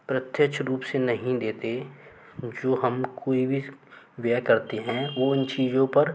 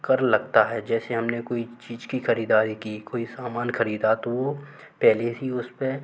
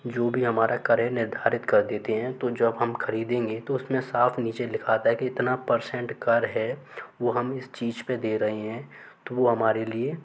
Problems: none marked